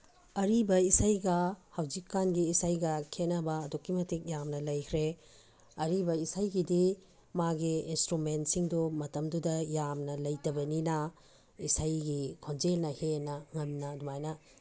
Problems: background sounds at intervals